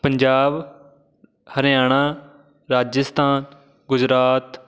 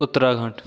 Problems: none marked